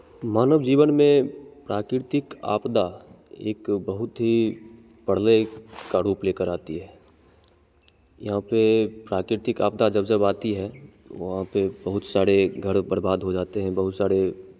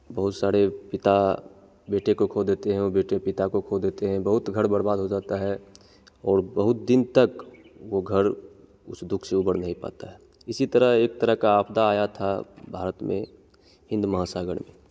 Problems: constant background noise